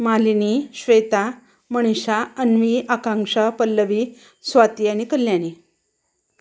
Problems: background sounds at intervals